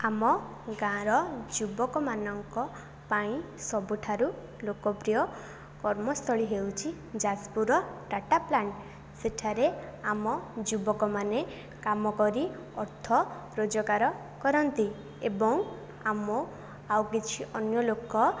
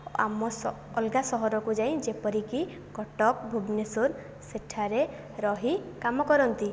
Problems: none marked